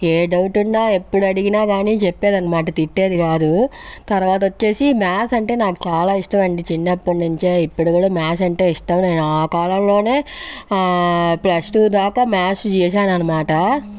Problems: background sounds at intervals